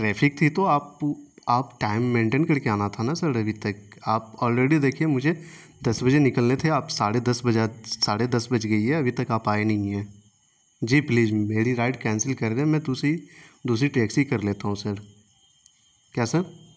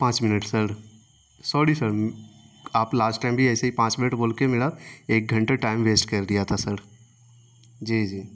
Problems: constant background noise